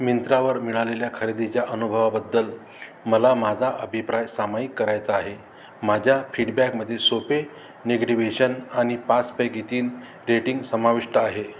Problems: constant background noise